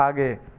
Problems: none marked